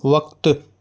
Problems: constant background noise